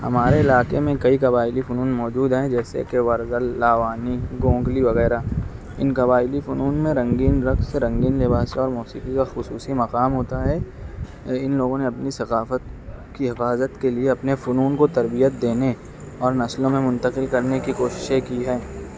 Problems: constant background noise